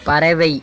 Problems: background sounds at intervals